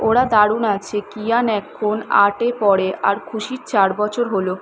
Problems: constant background noise